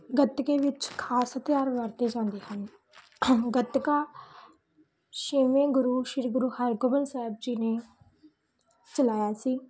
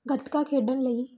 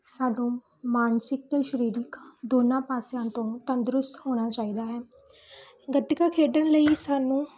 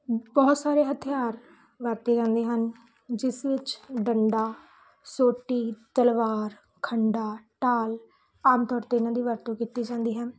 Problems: background sounds at intervals